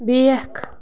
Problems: constant background noise